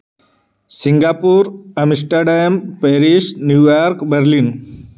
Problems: constant background noise